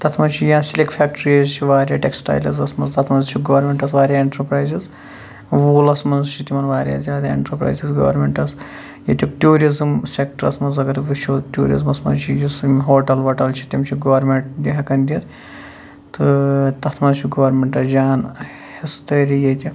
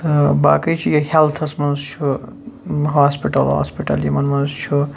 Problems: background sounds at intervals